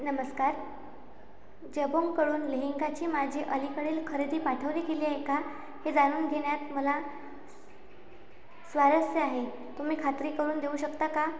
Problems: background sounds at intervals